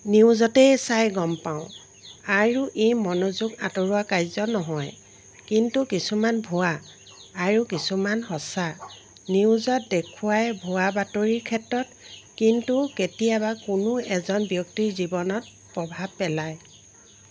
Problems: constant background noise